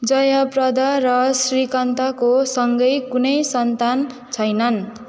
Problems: background sounds at intervals